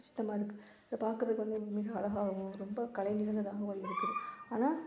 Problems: background sounds at intervals